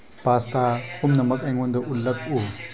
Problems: background conversations at intervals